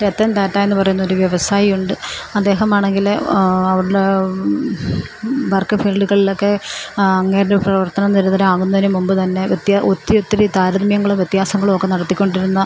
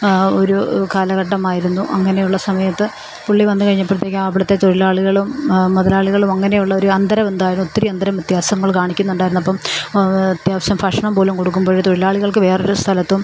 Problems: constant background noise